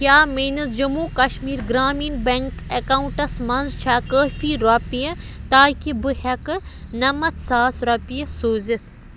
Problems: constant background noise